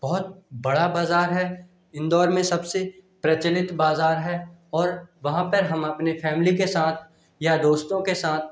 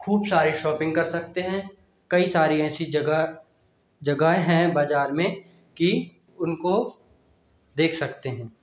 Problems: constant background noise